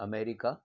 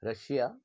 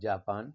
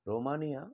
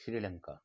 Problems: none marked